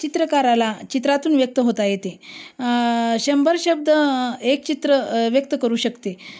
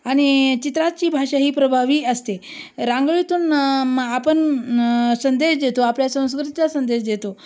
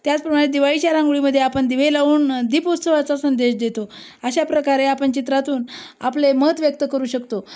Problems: none marked